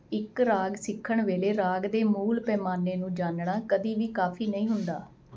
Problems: constant background noise